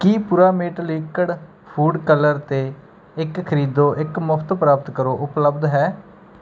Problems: background sounds at intervals